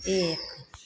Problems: none marked